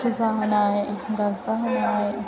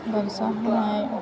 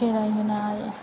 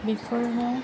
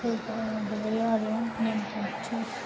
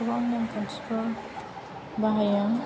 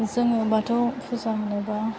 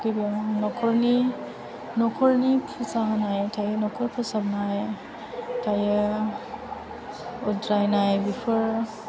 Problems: continuous background conversations, low volume